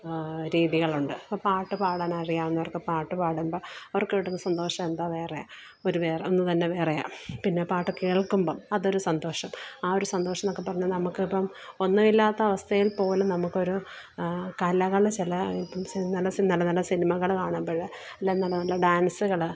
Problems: background sounds at intervals, background conversations at intervals